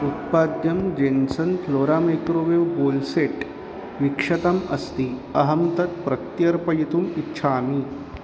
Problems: constant background noise